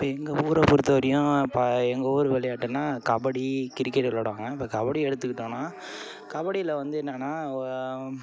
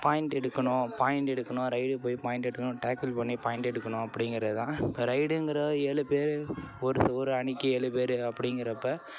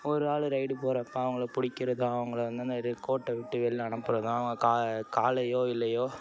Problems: constant background noise, continuous background conversations